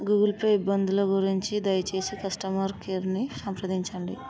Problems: continuous background conversations